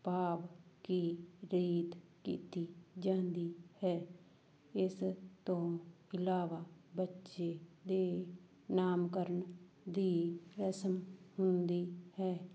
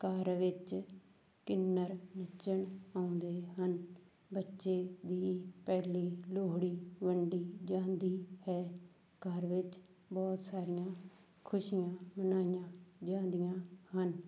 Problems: background sounds at intervals